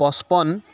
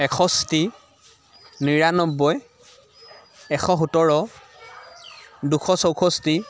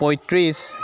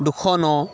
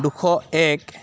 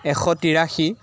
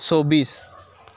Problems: background sounds at intervals, continuous background conversations